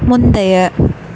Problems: background sounds at intervals